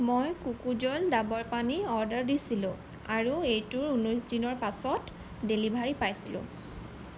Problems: background sounds at intervals